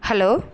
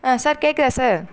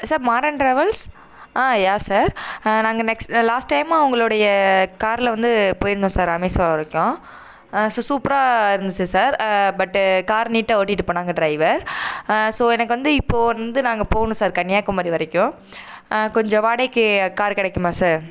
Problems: none marked